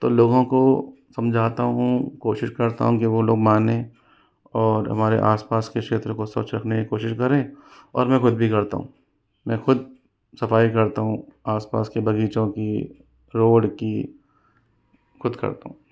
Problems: background sounds at intervals